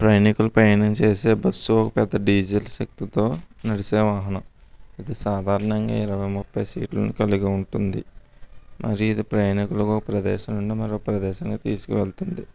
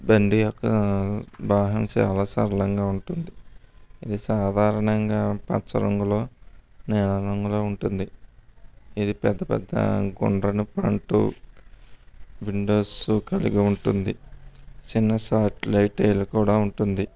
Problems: none marked